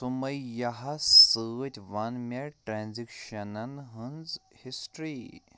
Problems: none marked